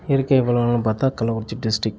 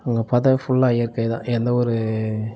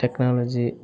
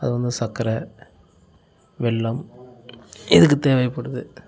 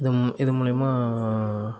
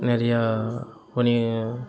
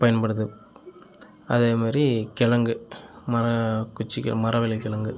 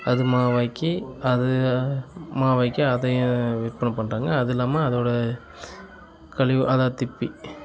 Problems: continuous background conversations